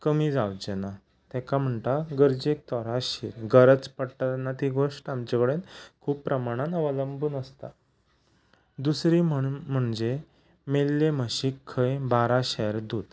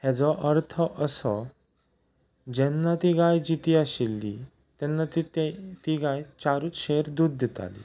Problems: background sounds at intervals